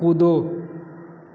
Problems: constant background noise